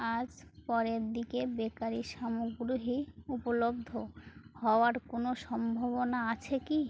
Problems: constant background noise